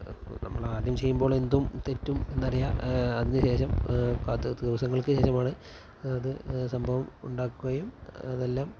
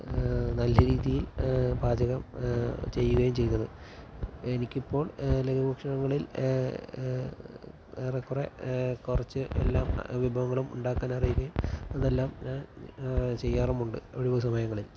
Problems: background sounds at intervals